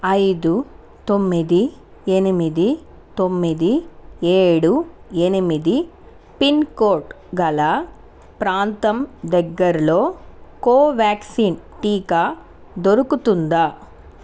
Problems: constant background noise